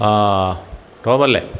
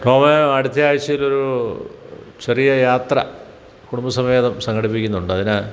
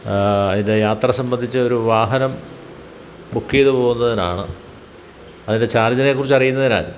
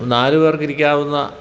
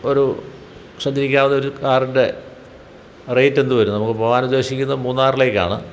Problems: none marked